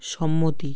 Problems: none marked